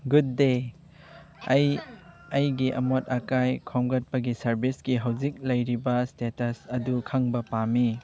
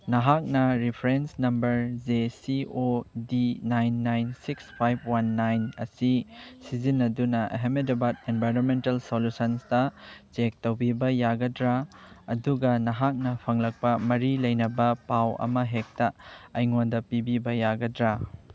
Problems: background sounds at intervals